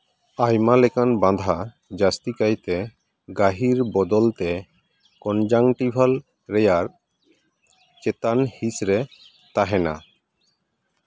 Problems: background sounds at intervals